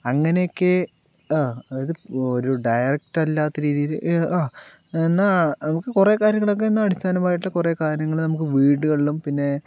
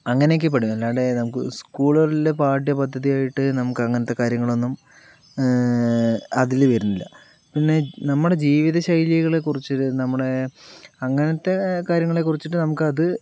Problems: none marked